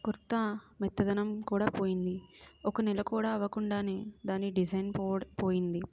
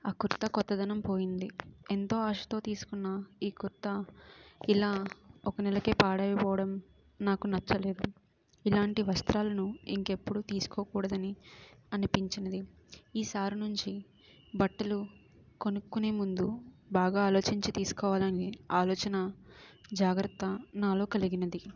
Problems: background sounds at intervals